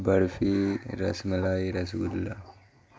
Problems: constant background noise